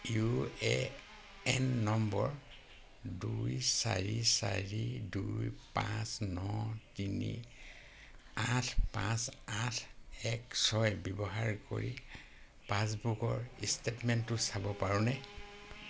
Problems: constant background noise